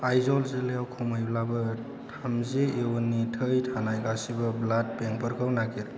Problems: low volume